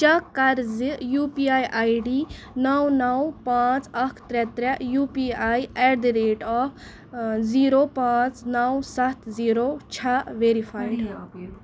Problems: background conversations at intervals